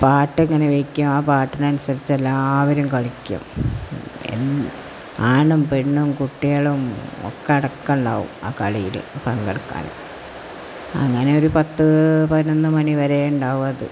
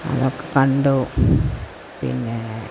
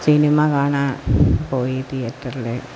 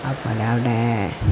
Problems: constant background noise